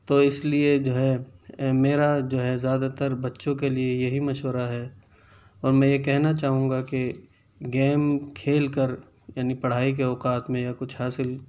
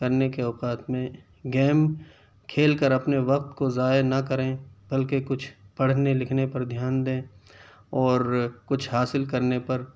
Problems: none marked